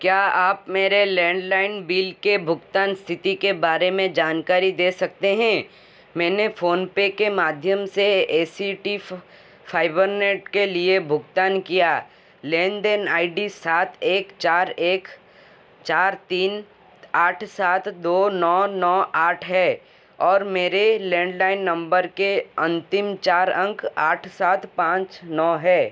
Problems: constant background noise